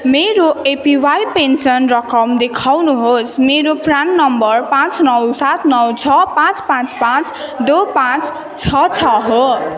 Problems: continuous background conversations